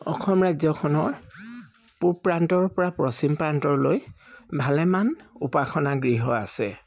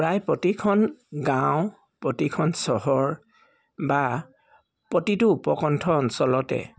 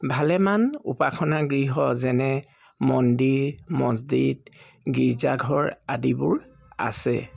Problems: background sounds at intervals